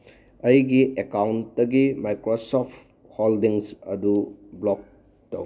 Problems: none marked